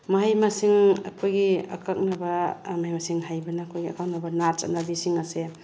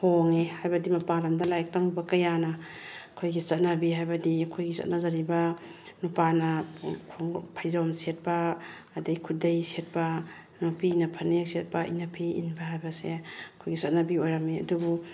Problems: background sounds at intervals